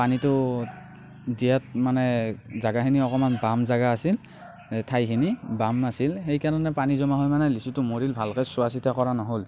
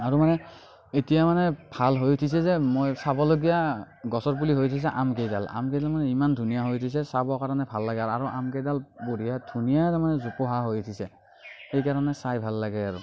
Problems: background sounds at intervals